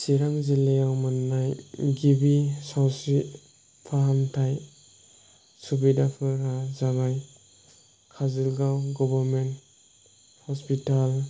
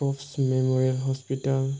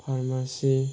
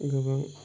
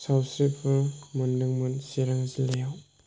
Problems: background sounds at intervals